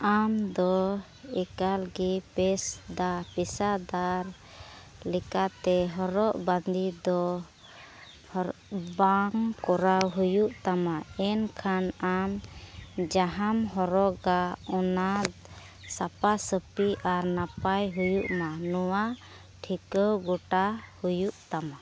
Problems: none marked